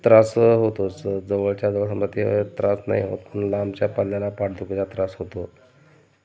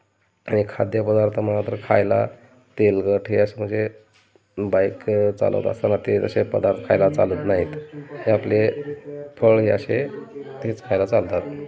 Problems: constant background noise, continuous background conversations